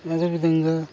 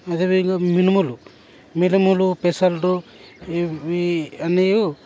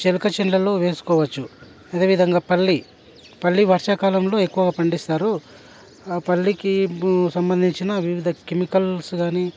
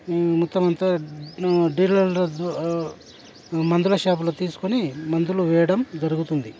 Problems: constant background noise, background conversations at intervals